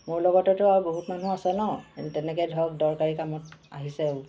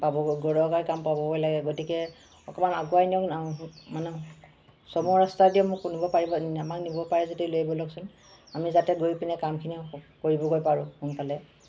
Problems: constant background noise